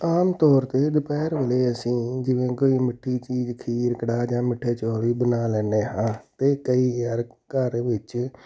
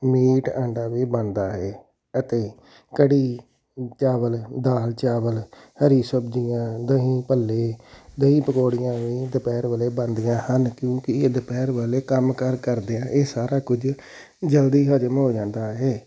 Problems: background sounds at intervals